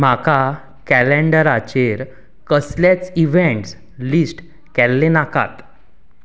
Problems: background sounds at intervals